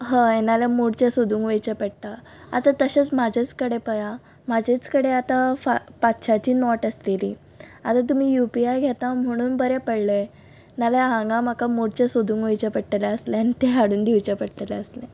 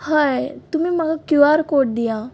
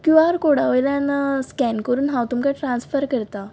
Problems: none marked